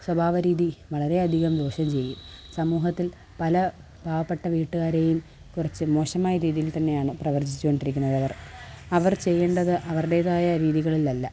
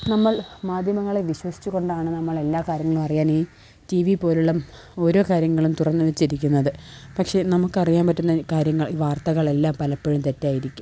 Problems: background sounds at intervals